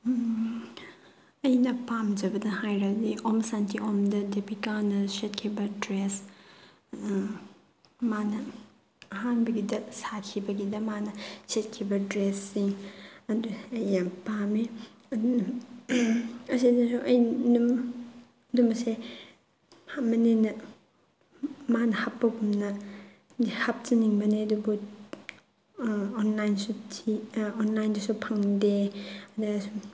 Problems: none marked